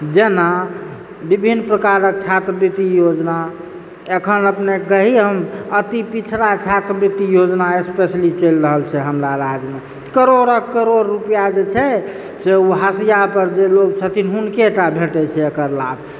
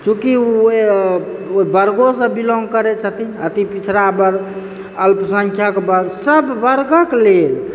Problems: background sounds at intervals